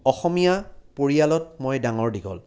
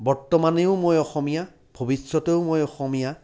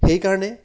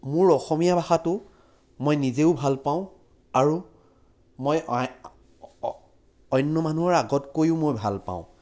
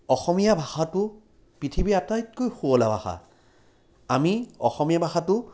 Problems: background sounds at intervals